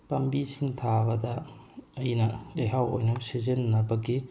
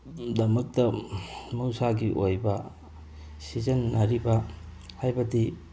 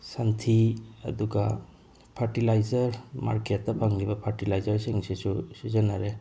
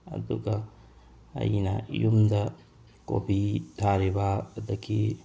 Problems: none marked